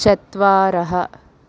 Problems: none marked